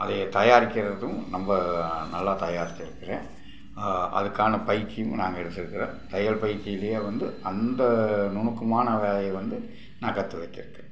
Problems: background sounds at intervals